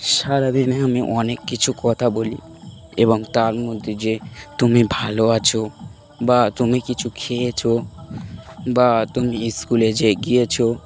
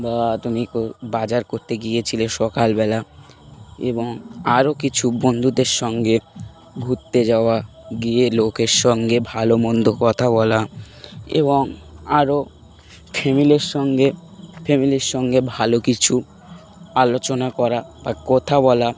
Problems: constant background noise